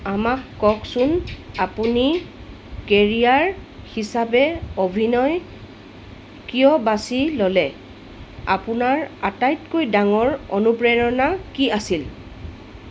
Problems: constant background noise